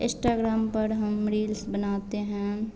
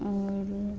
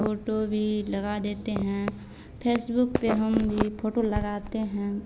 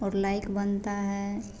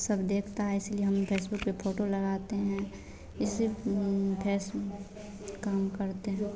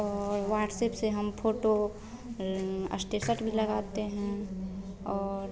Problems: constant background noise, continuous background conversations